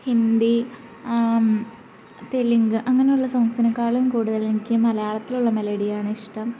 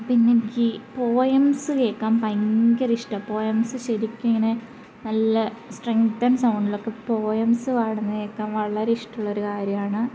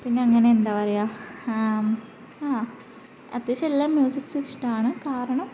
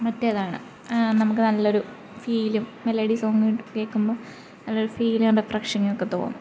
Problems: constant background noise